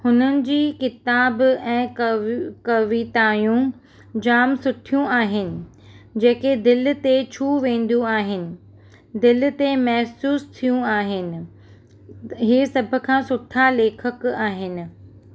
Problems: constant background noise